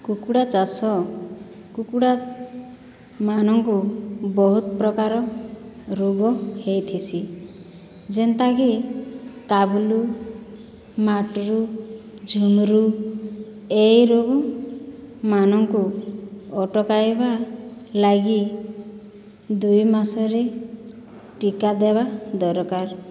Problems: none marked